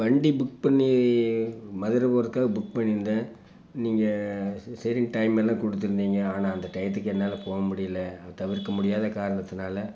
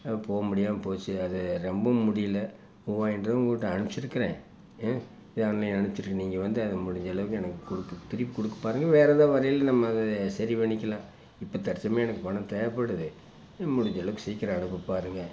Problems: background sounds at intervals